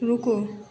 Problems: constant background noise